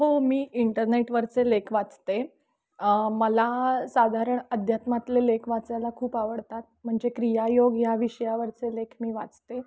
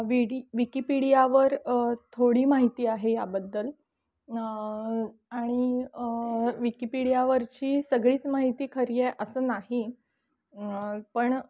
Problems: background sounds at intervals, background conversations at intervals